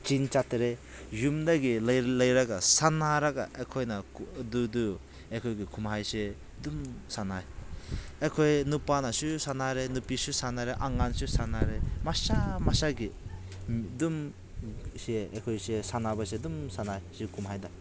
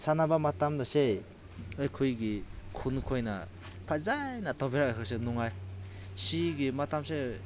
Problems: background conversations at intervals